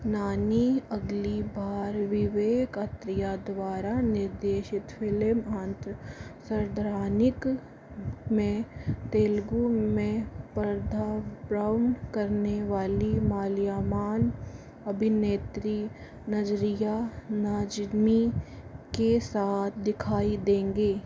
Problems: low volume